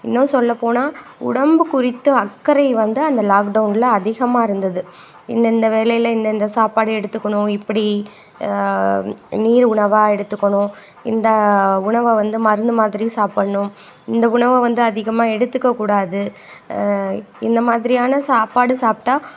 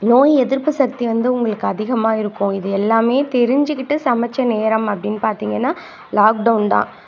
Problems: constant background noise